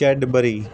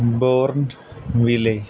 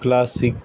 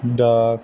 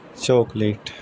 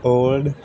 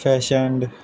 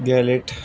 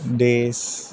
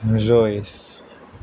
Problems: constant background noise